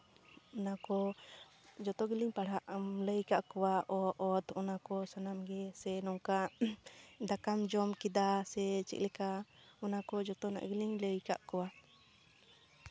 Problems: background sounds at intervals